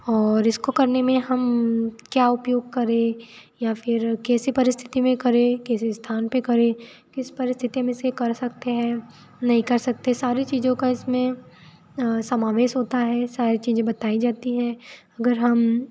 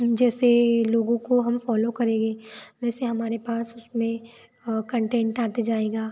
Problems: constant background noise